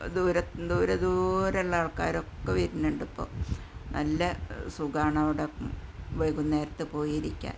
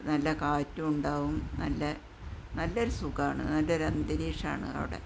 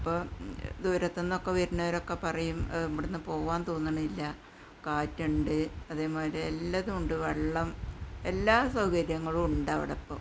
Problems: background sounds at intervals, low volume